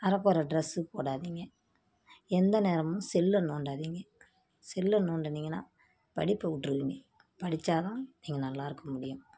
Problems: none marked